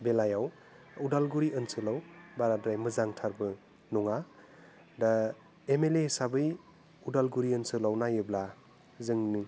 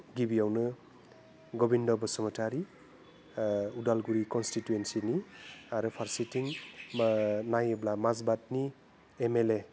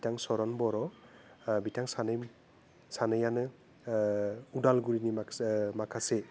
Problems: constant background noise